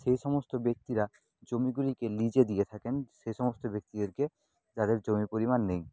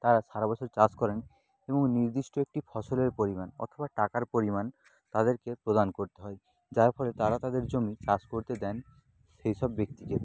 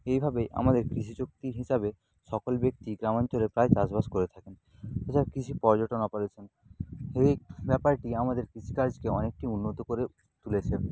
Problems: none marked